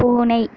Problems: constant background noise